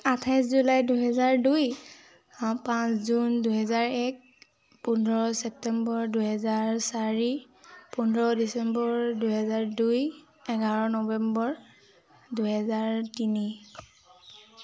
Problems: constant background noise